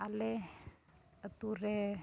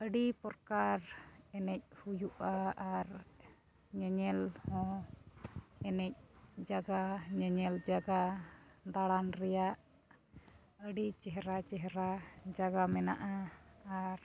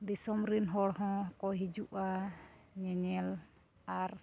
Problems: background sounds at intervals, low volume